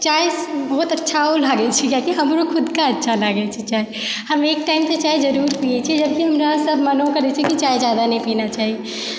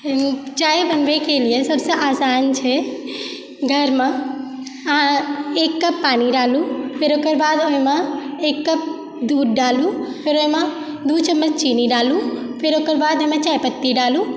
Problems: constant background noise